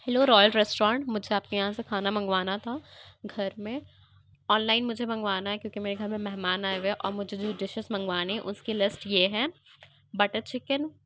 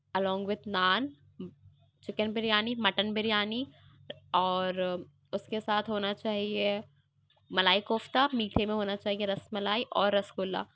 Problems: background sounds at intervals